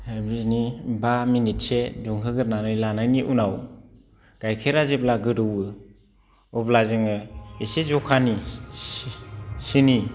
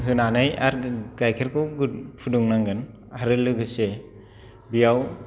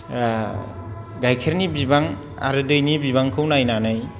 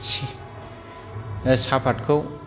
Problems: low volume